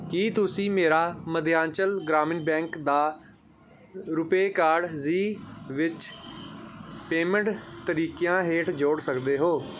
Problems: none marked